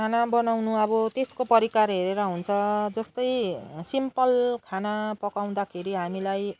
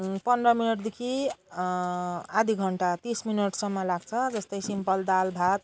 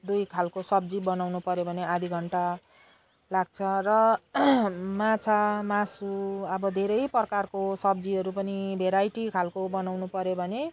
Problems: none marked